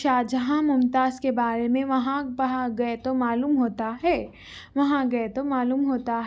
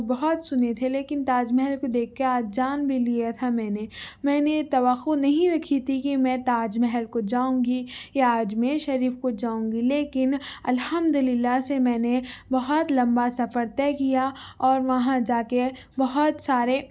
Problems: none marked